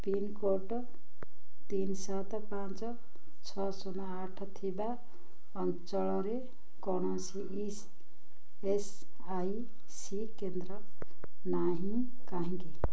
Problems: low volume